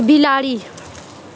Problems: echo